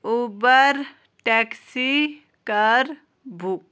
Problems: constant background noise